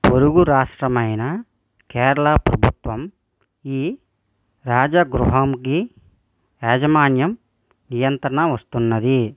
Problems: none marked